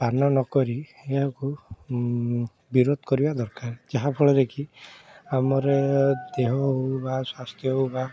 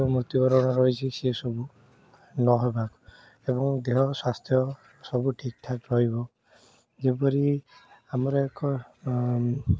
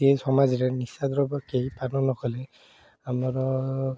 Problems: constant background noise, background conversations at intervals